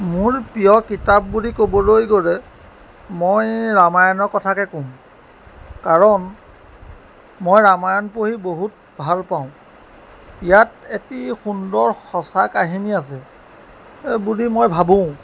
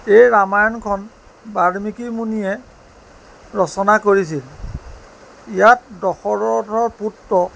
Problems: constant background noise